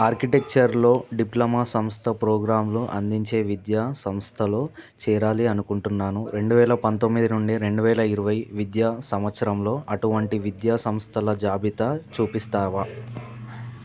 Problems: background sounds at intervals